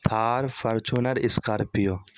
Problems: constant background noise